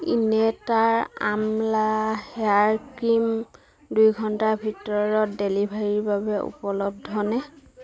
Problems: continuous background conversations